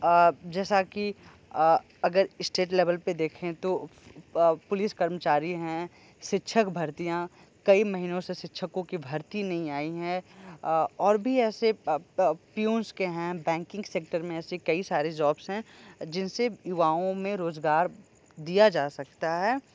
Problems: background sounds at intervals